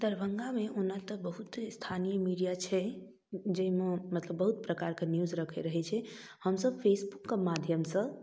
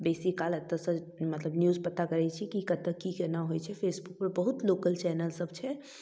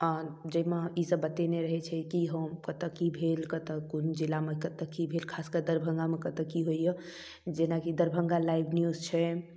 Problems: none marked